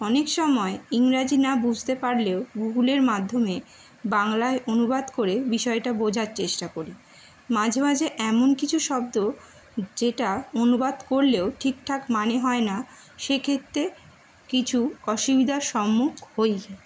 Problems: background sounds at intervals